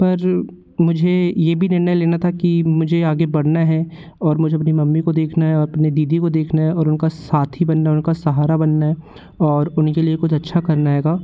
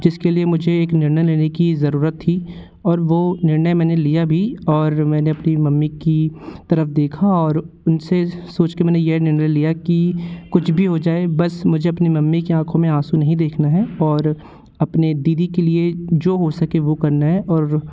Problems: constant background noise